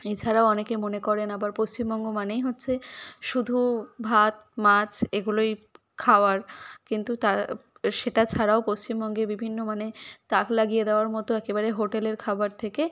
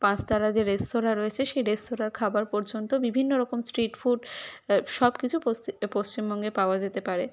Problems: constant background noise